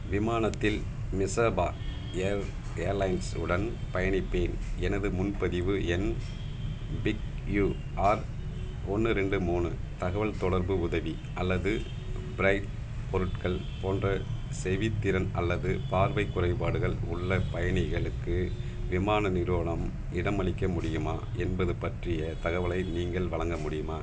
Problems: constant background noise